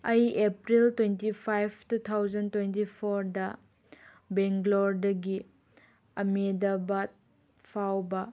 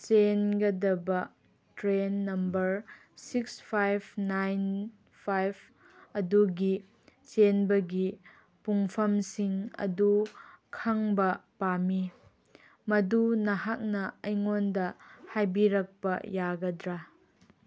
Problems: none marked